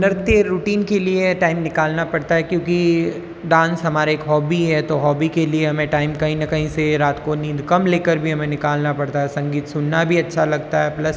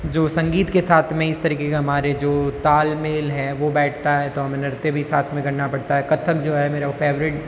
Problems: constant background noise, background conversations at intervals